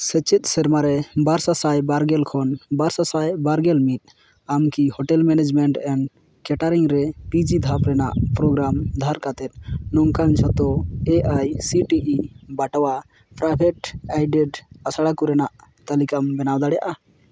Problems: none marked